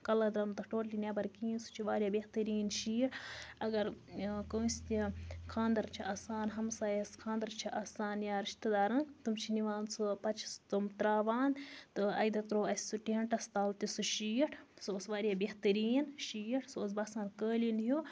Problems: low volume